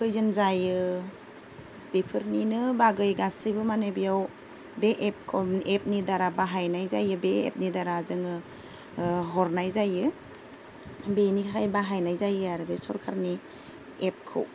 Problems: low volume